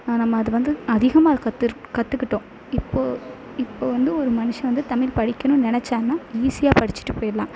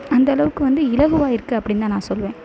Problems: none marked